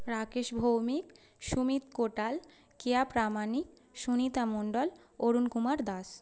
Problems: constant background noise